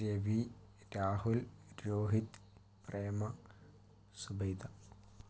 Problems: low volume